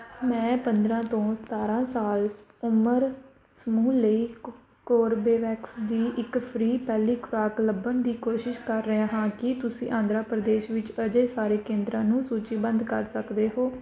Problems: background conversations at intervals